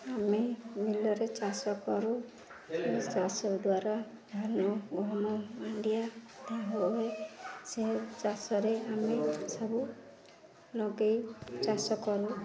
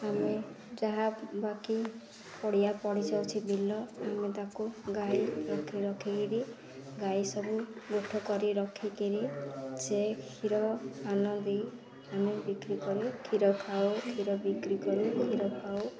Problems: none marked